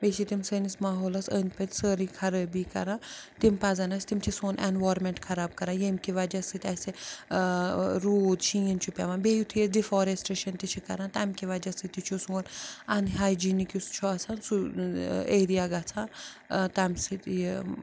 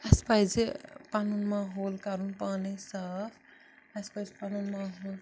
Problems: constant background noise